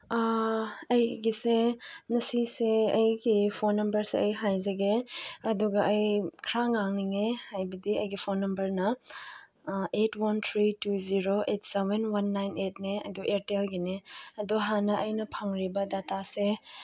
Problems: background sounds at intervals